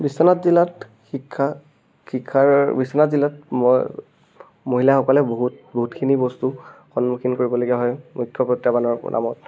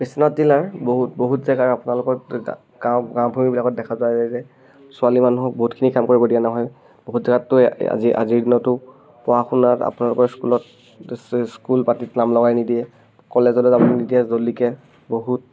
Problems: constant background noise